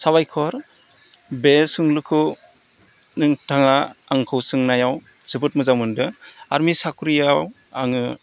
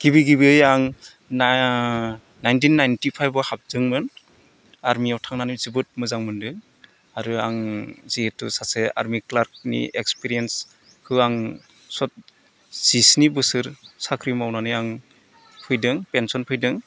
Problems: none marked